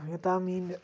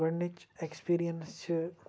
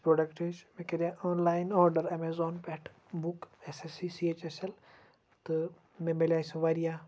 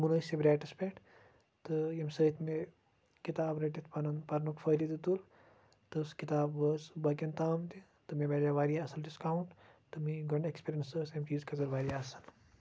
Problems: background sounds at intervals, low volume